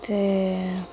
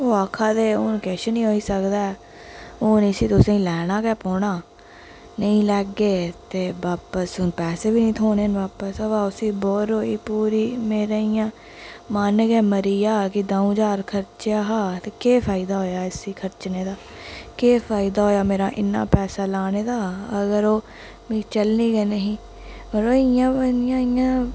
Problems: constant background noise, echo